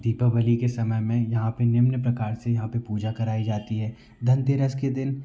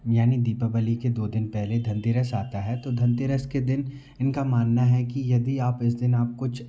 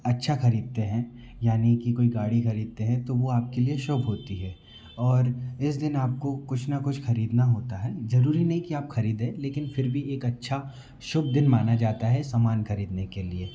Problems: none marked